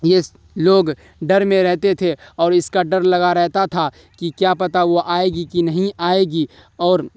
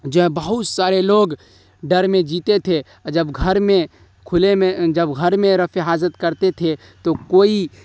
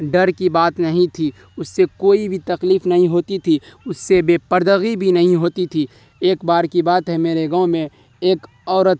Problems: none marked